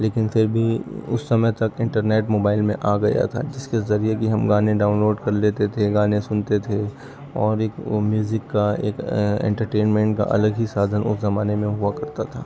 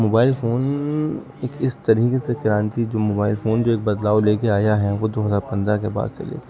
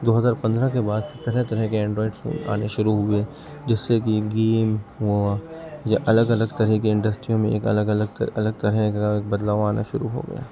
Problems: background sounds at intervals, low volume